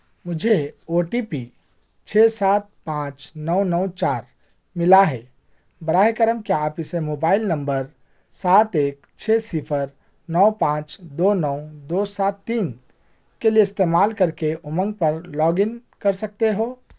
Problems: background sounds at intervals